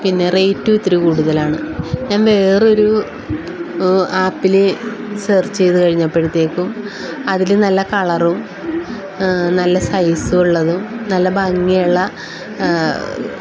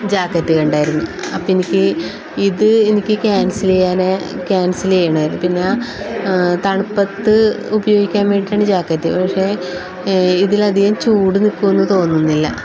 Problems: constant background noise